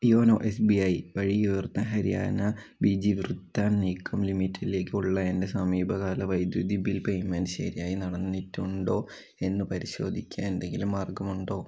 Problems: none marked